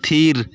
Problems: continuous background conversations